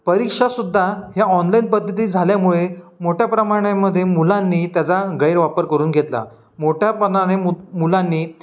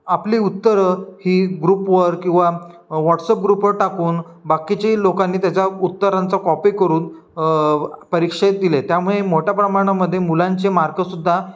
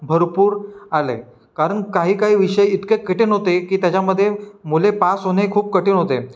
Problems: background sounds at intervals